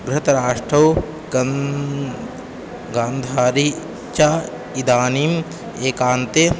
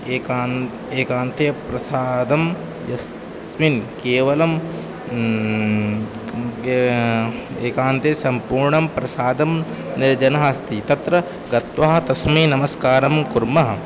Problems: background sounds at intervals